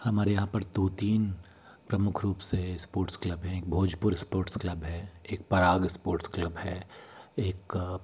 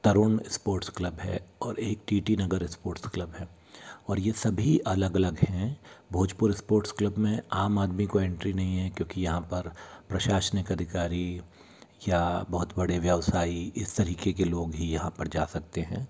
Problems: background sounds at intervals